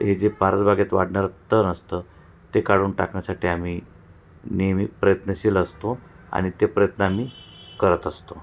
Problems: none marked